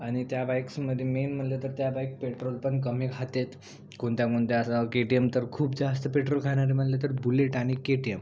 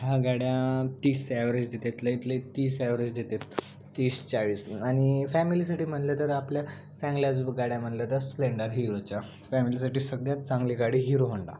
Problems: constant background noise